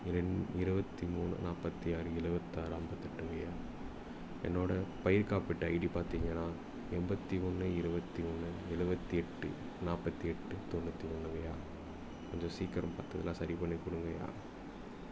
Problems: background sounds at intervals